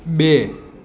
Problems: constant background noise